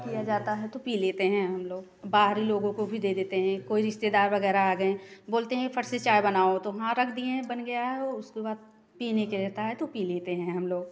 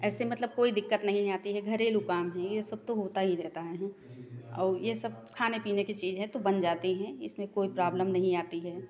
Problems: background conversations at intervals